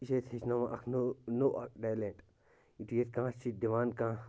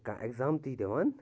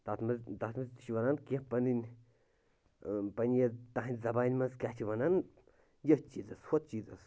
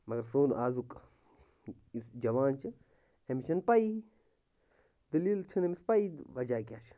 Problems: constant background noise